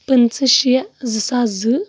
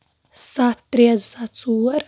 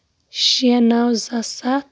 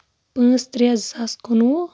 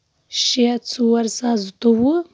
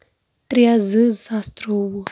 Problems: none marked